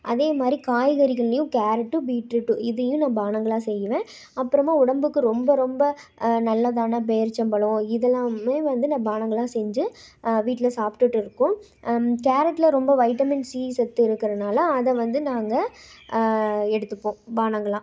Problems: none marked